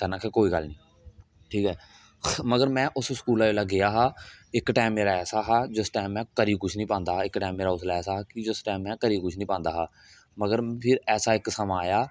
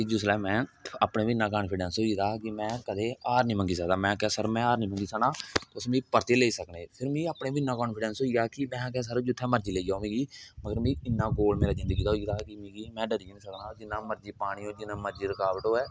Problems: none marked